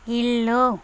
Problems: constant background noise